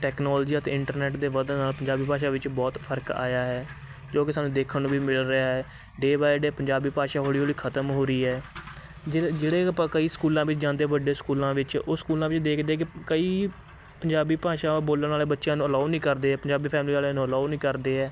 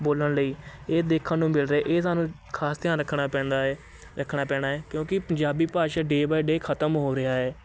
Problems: constant background noise, background conversations at intervals